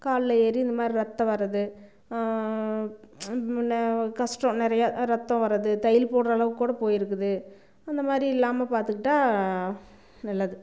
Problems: none marked